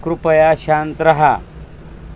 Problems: constant background noise